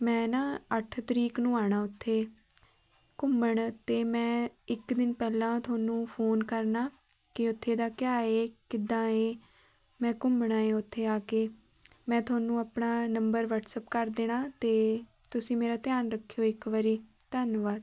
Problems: background conversations at intervals